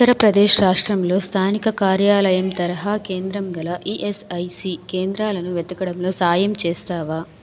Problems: background conversations at intervals